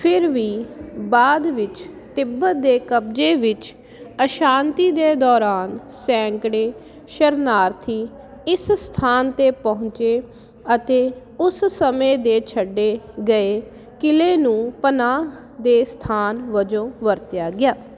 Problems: constant background noise